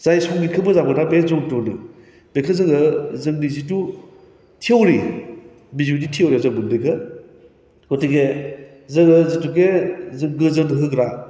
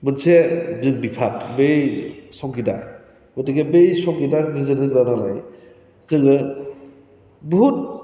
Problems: constant background noise